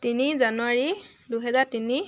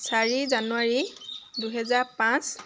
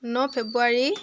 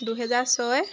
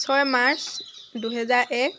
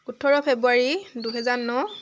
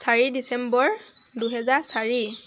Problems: none marked